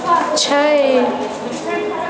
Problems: constant background noise, background conversations at intervals